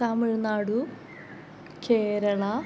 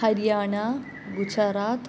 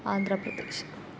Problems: background sounds at intervals